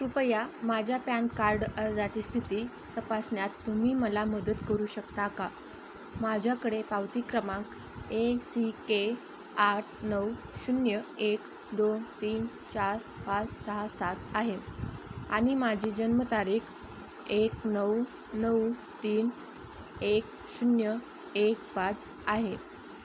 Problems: constant background noise